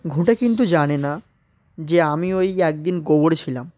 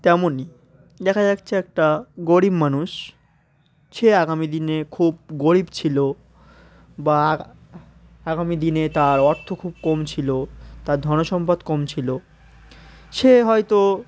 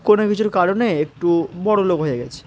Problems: constant background noise, continuous background conversations